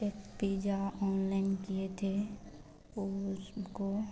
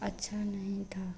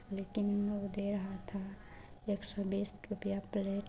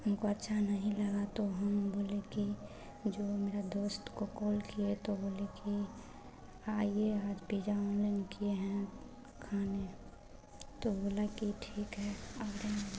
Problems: constant background noise, background conversations at intervals